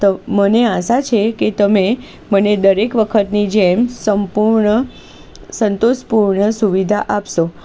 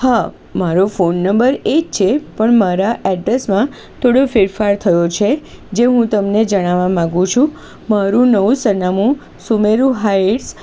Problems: constant background noise